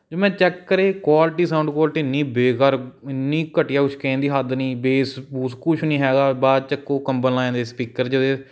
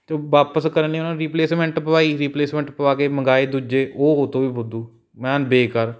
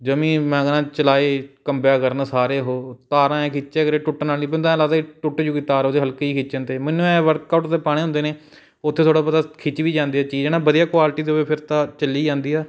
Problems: none marked